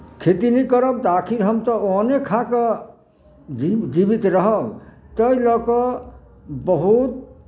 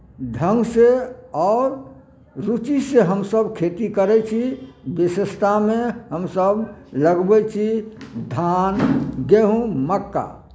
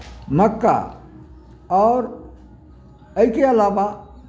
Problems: none marked